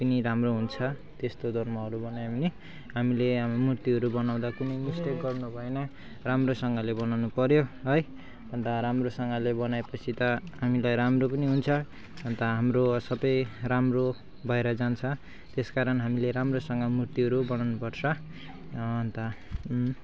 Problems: constant background noise, continuous background conversations